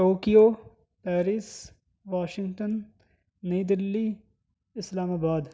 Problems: none marked